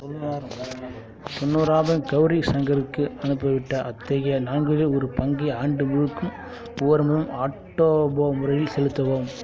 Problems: background sounds at intervals